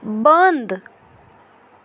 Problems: background sounds at intervals